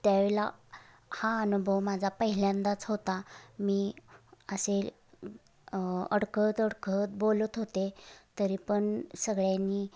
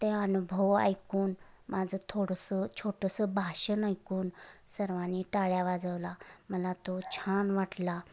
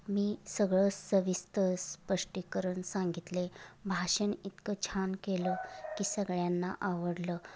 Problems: constant background noise